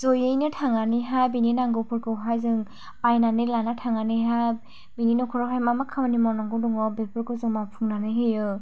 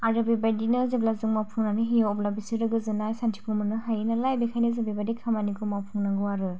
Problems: low volume